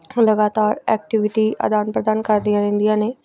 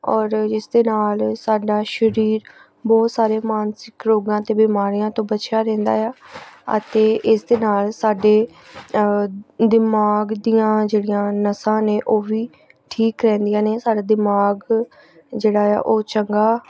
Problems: background sounds at intervals